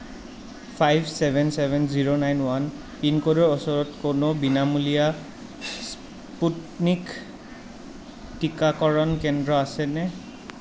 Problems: constant background noise